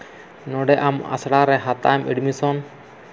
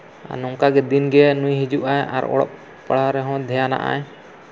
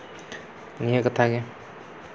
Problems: constant background noise